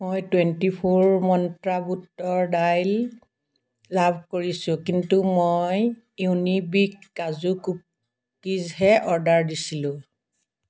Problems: background sounds at intervals